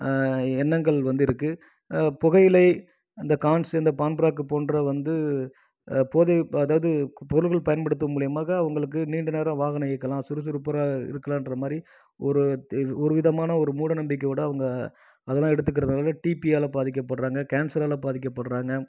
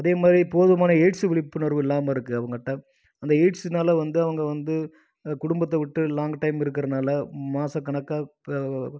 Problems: none marked